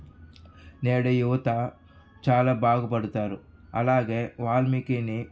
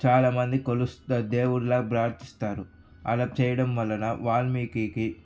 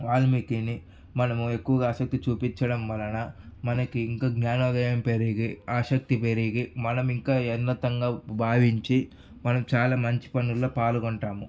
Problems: background sounds at intervals